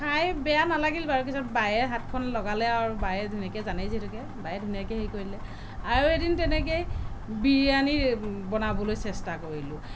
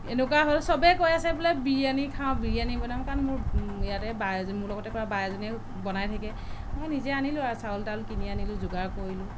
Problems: constant background noise